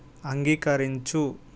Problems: constant background noise